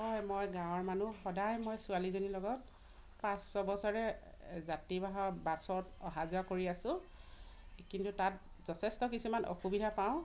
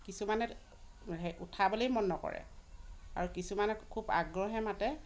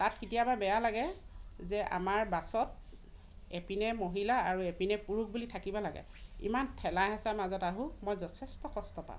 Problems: none marked